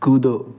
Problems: background sounds at intervals